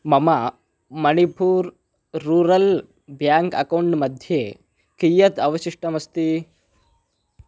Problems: none marked